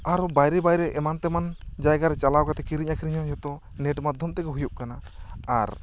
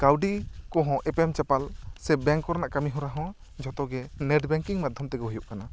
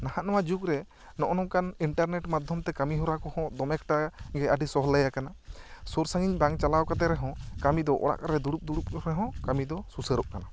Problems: none marked